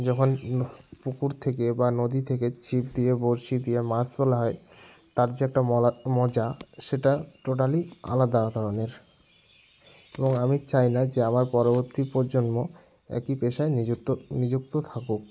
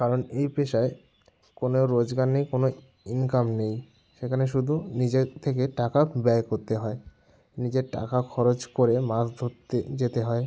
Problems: none marked